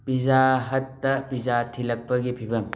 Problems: none marked